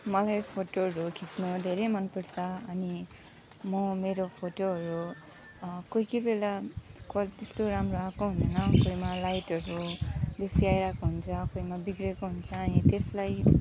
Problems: background sounds at intervals